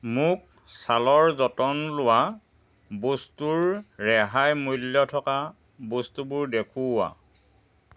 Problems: constant background noise